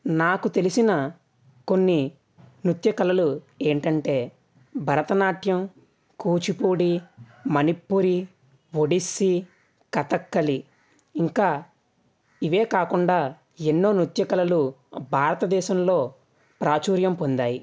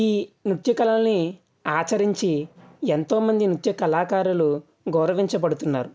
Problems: none marked